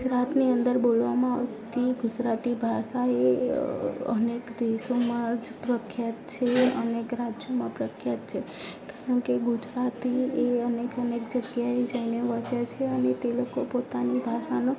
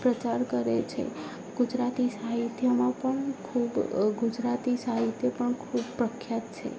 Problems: background sounds at intervals, low volume